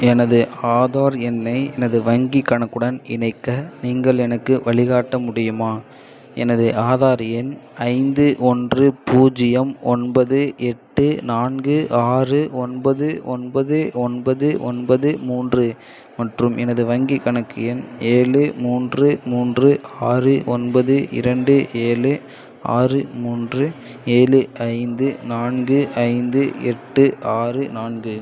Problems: none marked